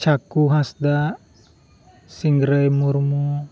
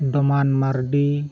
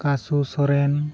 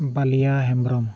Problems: none marked